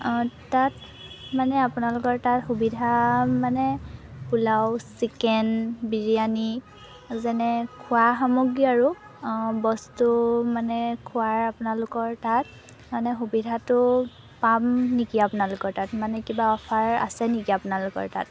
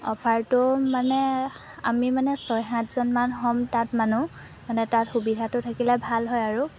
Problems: none marked